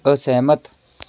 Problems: background conversations at intervals